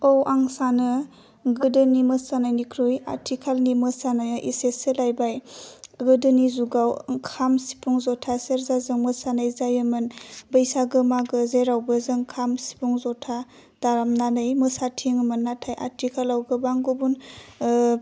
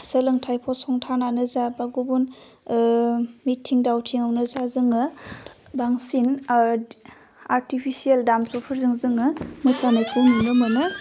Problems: low volume